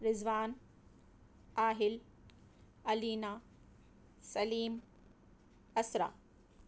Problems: none marked